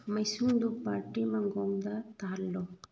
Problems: low volume